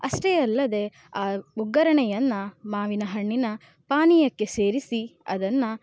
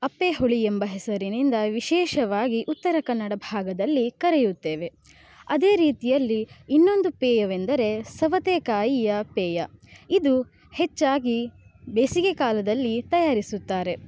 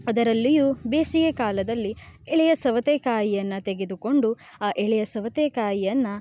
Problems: none marked